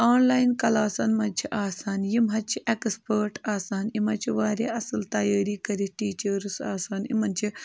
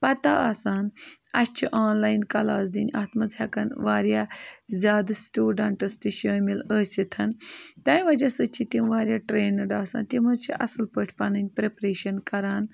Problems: constant background noise